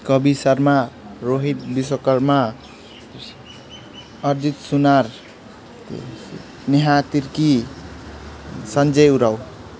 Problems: background sounds at intervals